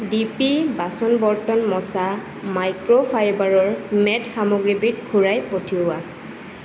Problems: constant background noise